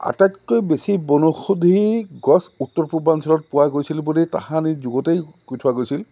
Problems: none marked